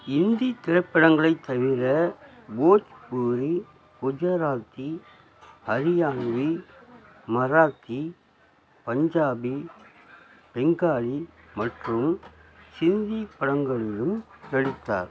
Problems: background sounds at intervals, low volume